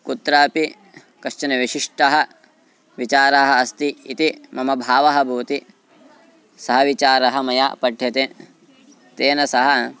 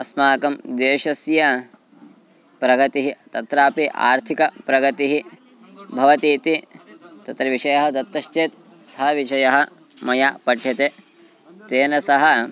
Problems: constant background noise, continuous background conversations